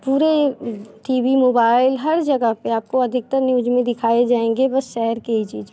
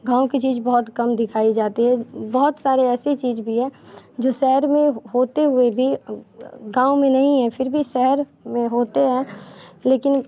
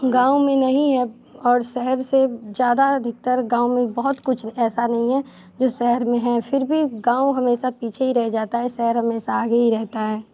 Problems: constant background noise